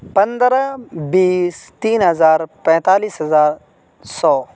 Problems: constant background noise